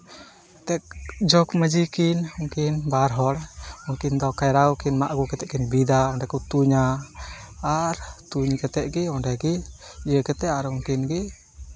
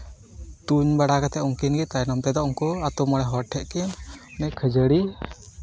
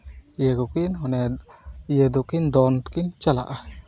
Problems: constant background noise, background conversations at intervals